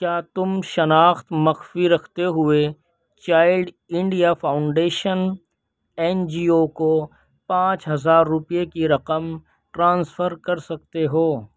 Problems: none marked